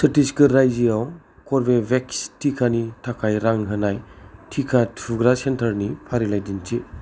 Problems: none marked